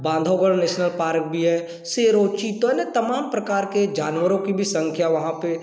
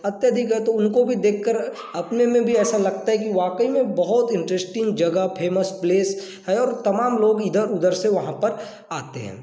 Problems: none marked